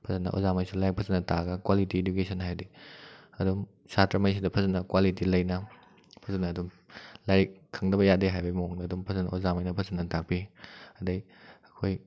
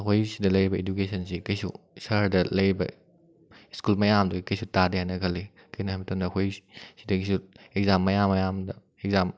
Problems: none marked